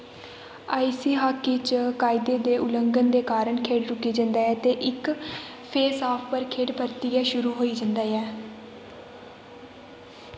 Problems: constant background noise